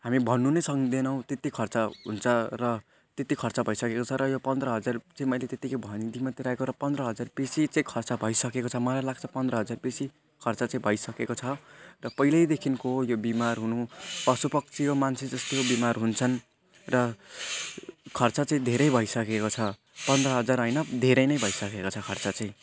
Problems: constant background noise, continuous background conversations